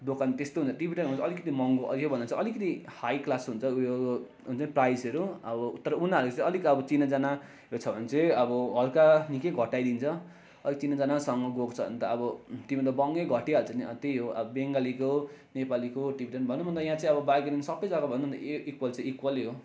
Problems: constant background noise